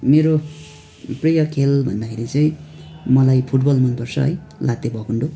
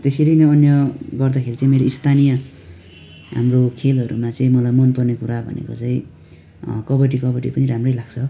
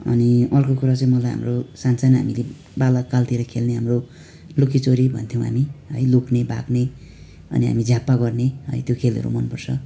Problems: constant background noise